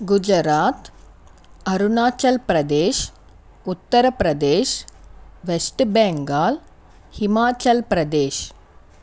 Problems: none marked